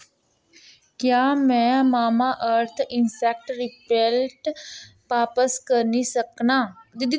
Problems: constant background noise